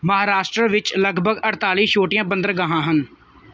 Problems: background sounds at intervals